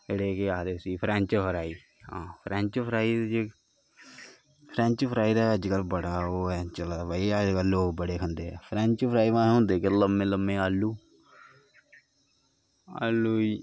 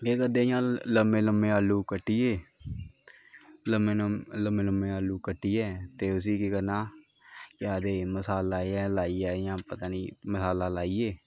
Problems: constant background noise